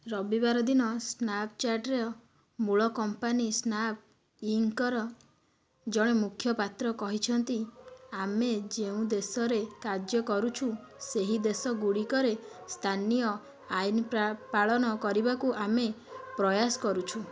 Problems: constant background noise